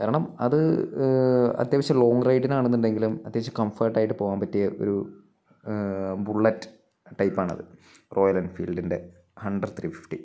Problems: none marked